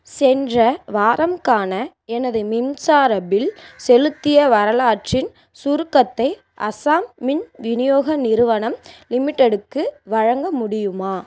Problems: constant background noise